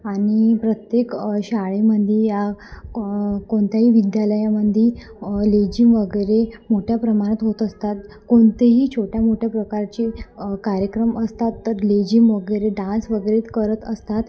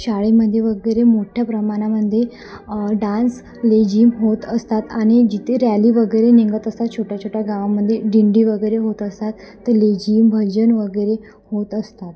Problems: constant background noise, background conversations at intervals